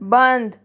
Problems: background sounds at intervals